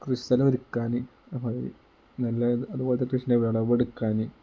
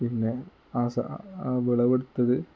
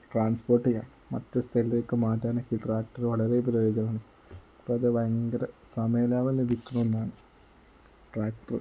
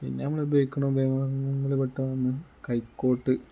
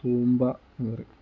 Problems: none marked